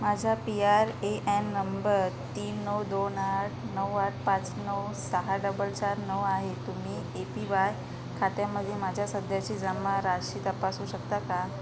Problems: constant background noise